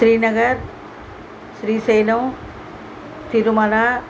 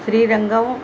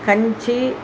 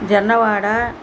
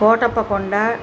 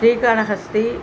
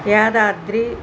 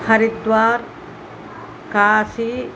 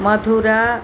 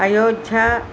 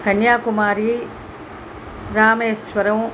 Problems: constant background noise